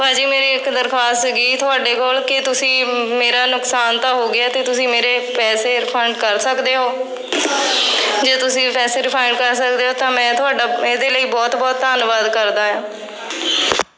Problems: constant background noise